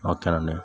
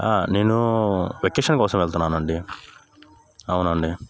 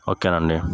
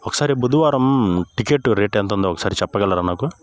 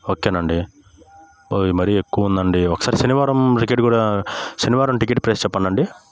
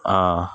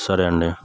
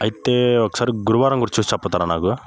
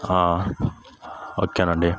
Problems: constant background noise